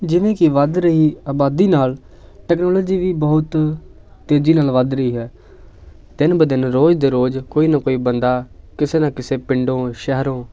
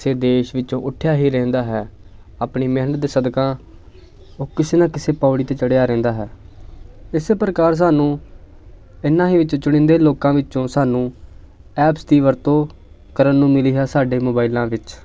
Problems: background sounds at intervals, continuous background conversations